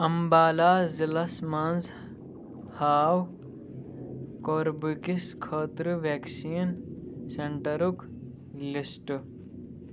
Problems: constant background noise